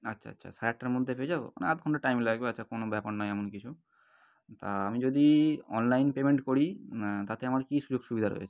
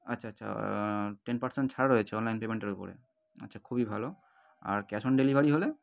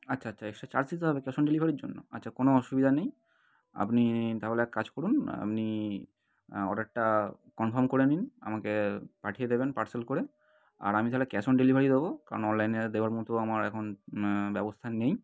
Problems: none marked